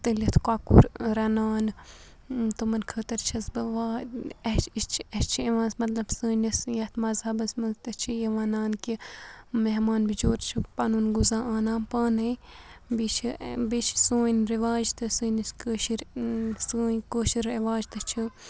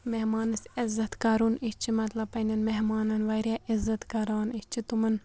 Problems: none marked